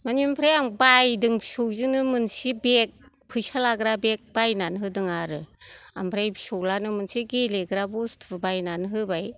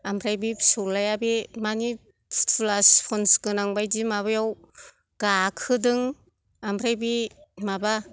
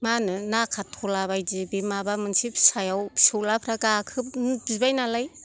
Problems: none marked